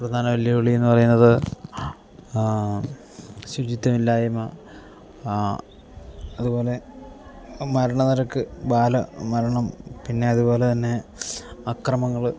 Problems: low volume